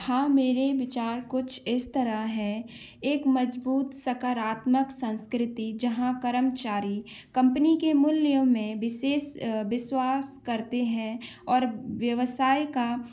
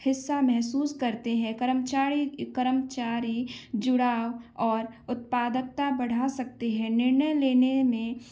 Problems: background sounds at intervals